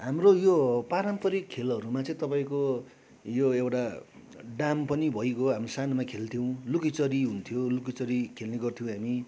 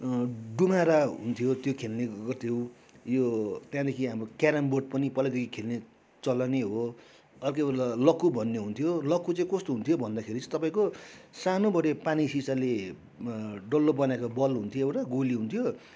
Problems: background sounds at intervals, background conversations at intervals